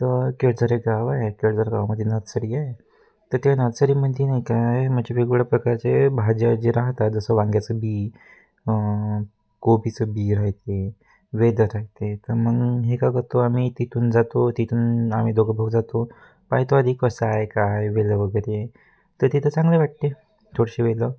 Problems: constant background noise